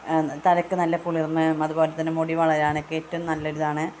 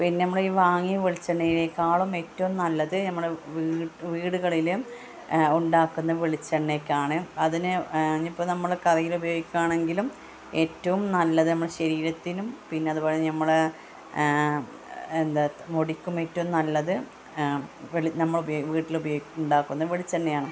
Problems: constant background noise, background conversations at intervals